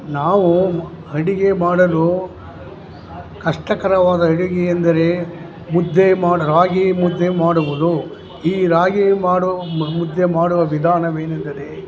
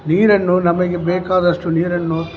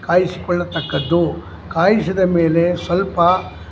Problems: background sounds at intervals